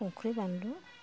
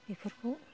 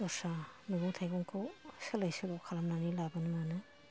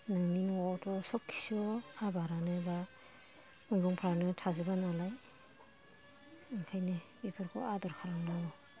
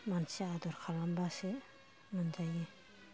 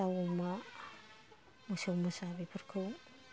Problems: background sounds at intervals, low volume